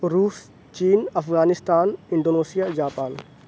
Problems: none marked